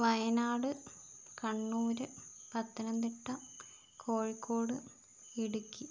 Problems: none marked